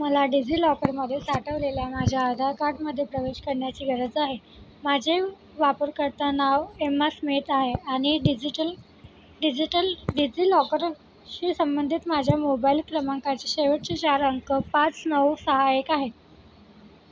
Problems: background sounds at intervals